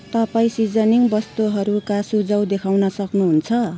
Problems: constant background noise